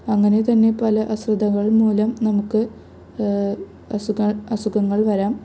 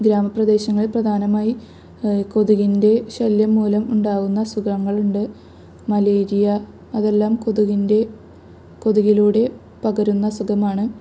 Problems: none marked